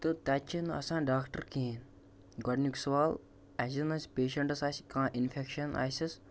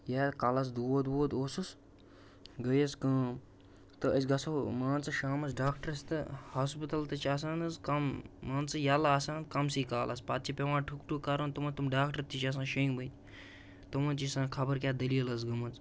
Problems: constant background noise